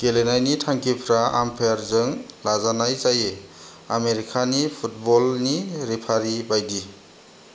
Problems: none marked